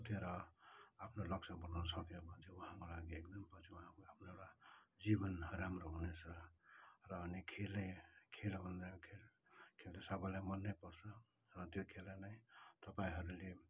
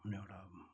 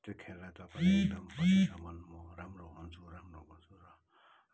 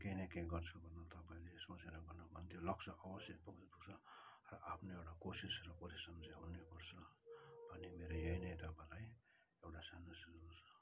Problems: low volume